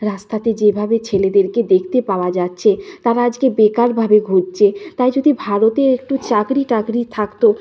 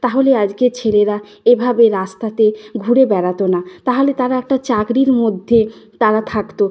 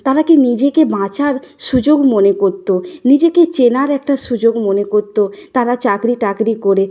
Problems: none marked